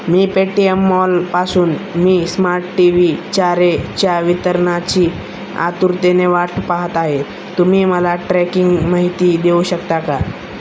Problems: constant background noise